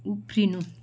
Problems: background sounds at intervals